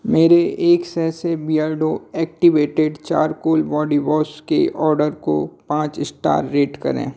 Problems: none marked